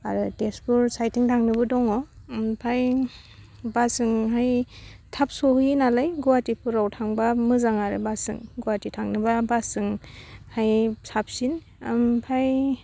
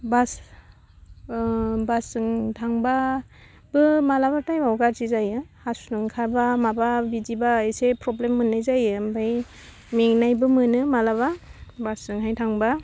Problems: none marked